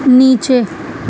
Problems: constant background noise